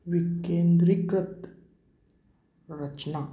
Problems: constant background noise